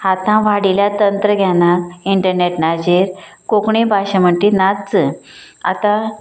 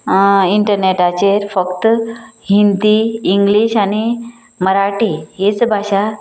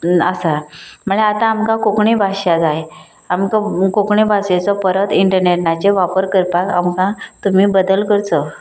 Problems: constant background noise